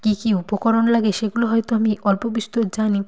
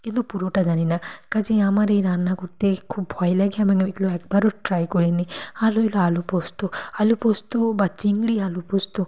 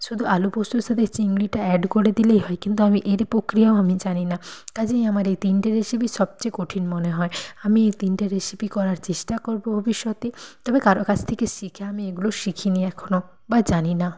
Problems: none marked